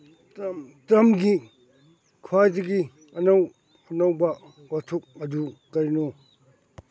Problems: background sounds at intervals, background conversations at intervals